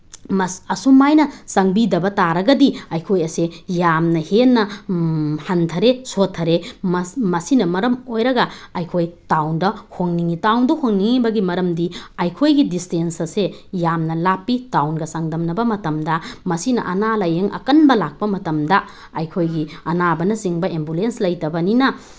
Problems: none marked